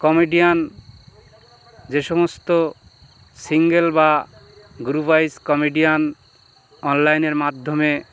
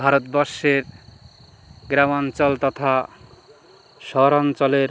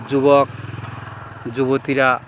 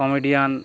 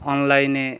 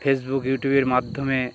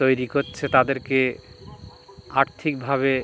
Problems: constant background noise, background conversations at intervals